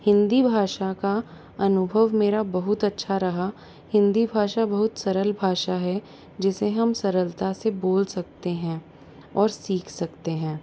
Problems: background sounds at intervals